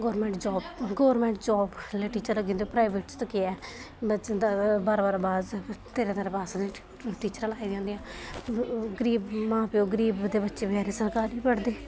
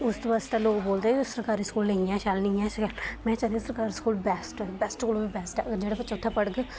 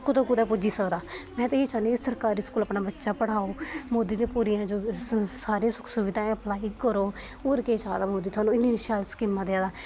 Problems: constant background noise